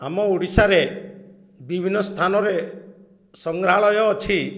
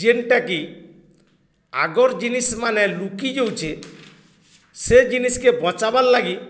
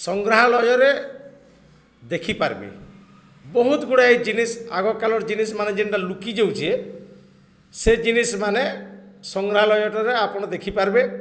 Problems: none marked